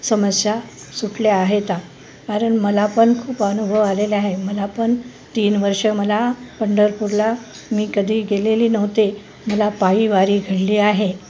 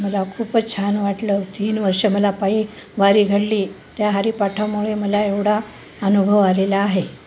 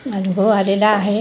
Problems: none marked